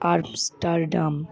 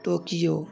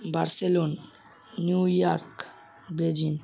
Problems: constant background noise, background conversations at intervals